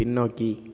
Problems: none marked